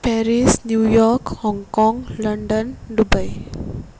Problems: background sounds at intervals